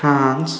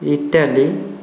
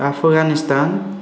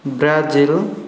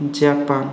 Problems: constant background noise